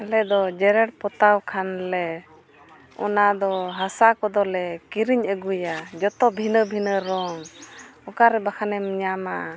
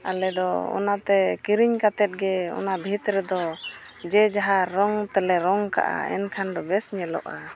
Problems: constant background noise, continuous background conversations